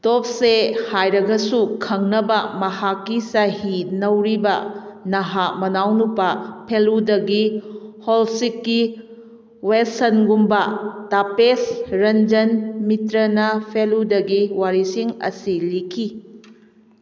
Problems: echo